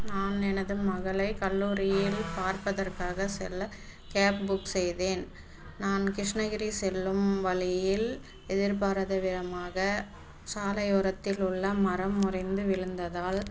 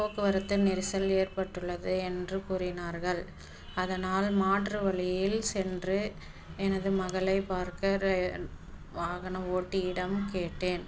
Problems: constant background noise, background conversations at intervals